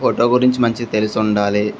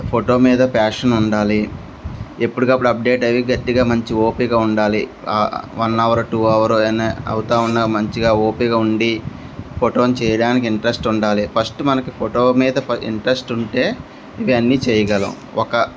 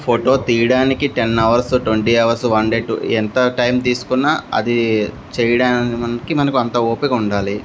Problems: constant background noise, background conversations at intervals